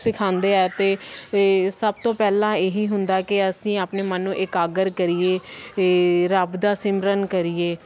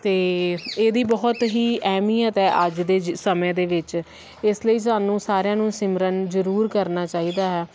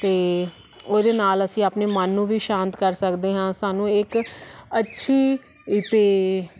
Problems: constant background noise